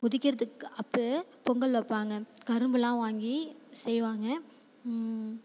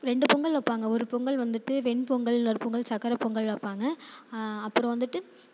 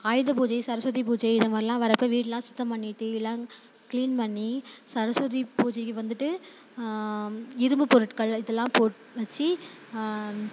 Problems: none marked